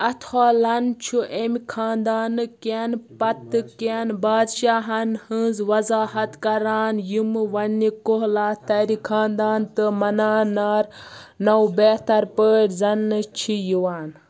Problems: background sounds at intervals